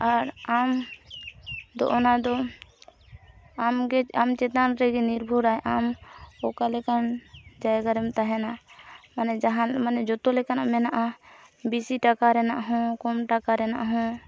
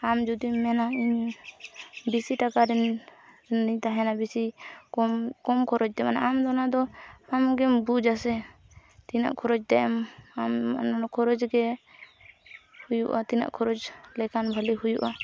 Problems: constant background noise